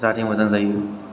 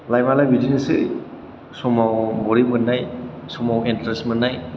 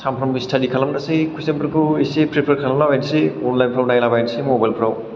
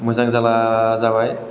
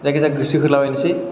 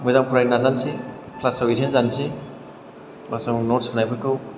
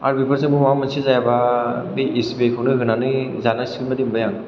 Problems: none marked